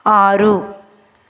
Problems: constant background noise, echo